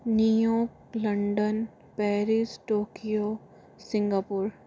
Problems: none marked